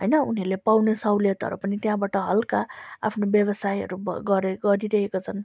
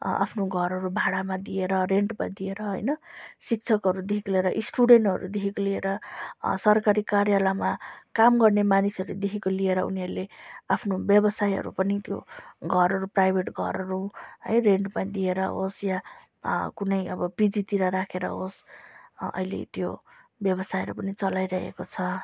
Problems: background sounds at intervals